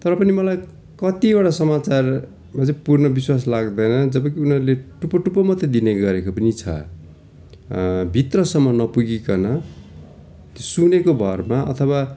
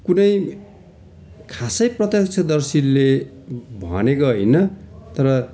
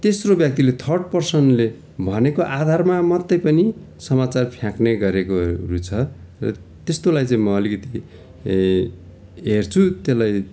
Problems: continuous background conversations